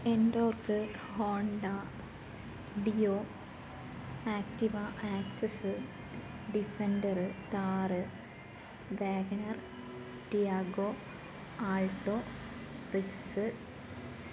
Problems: constant background noise